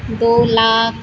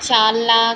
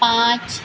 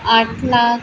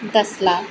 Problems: none marked